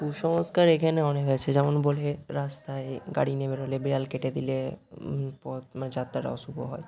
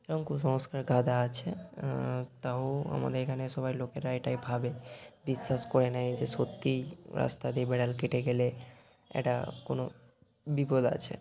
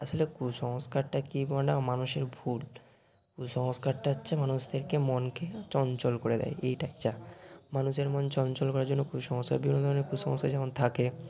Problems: constant background noise